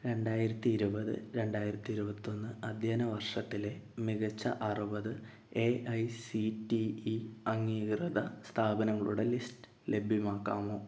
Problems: low volume